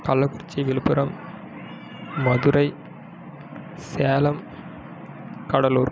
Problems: background sounds at intervals